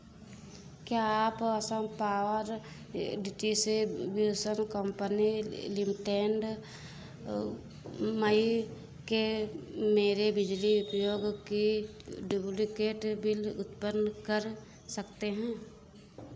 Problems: none marked